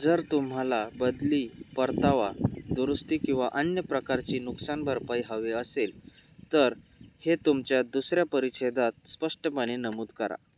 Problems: none marked